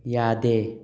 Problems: none marked